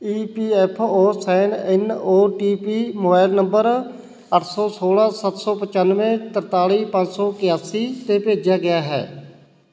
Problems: constant background noise